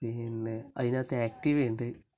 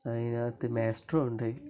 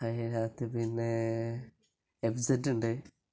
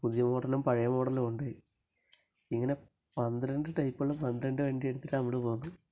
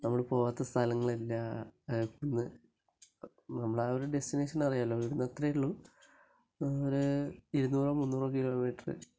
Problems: low volume